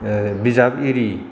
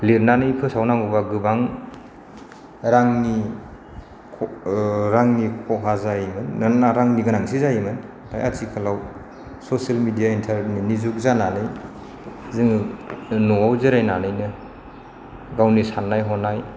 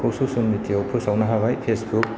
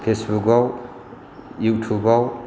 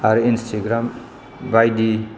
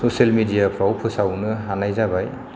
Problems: constant background noise